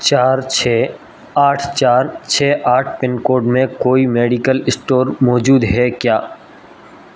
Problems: constant background noise